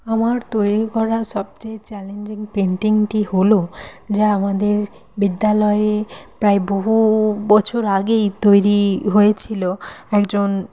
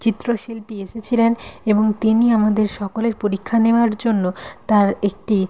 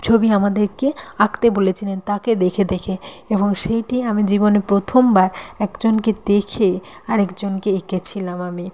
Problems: none marked